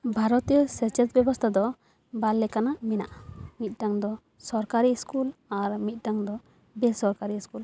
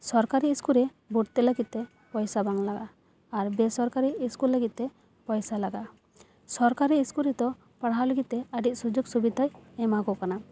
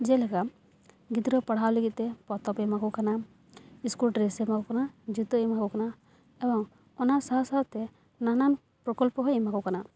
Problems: none marked